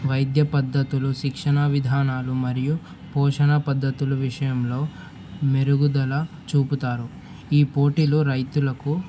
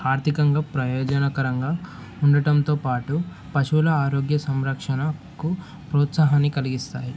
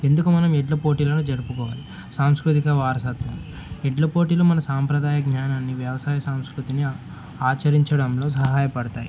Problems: none marked